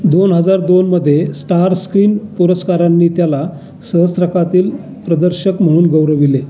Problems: constant background noise, continuous background conversations